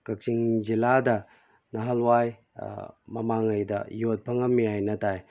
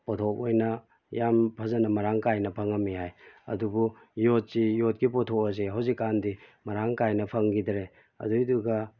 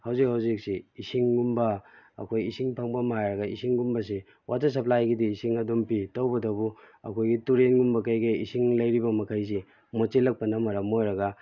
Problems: none marked